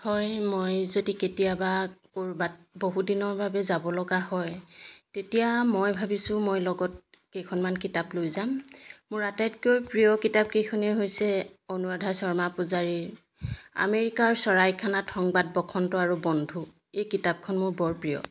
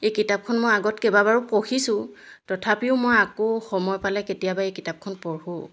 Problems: background sounds at intervals